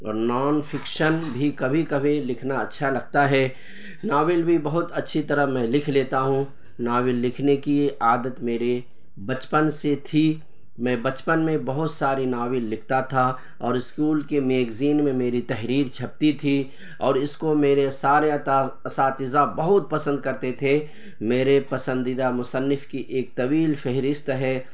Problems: constant background noise